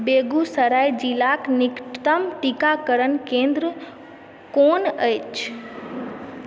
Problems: background conversations at intervals